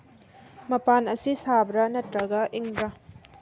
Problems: none marked